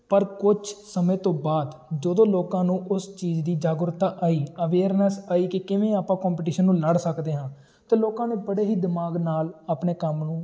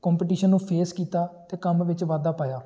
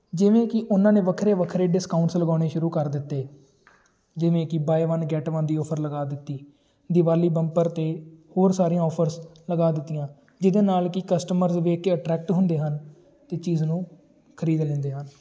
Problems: background sounds at intervals, continuous background conversations